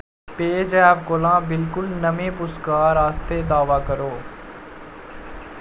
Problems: none marked